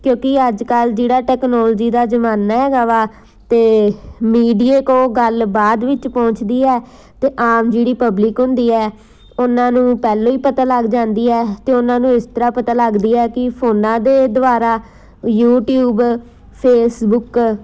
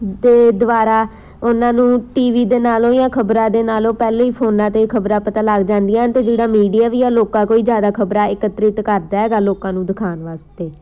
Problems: none marked